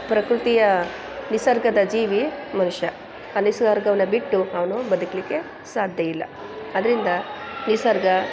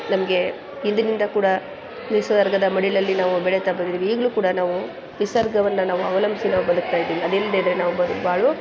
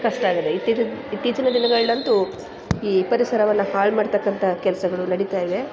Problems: background sounds at intervals